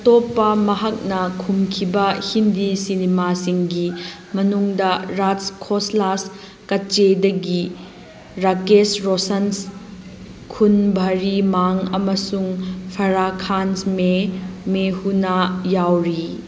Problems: background sounds at intervals